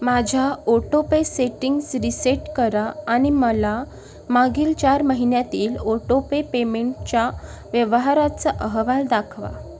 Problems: none marked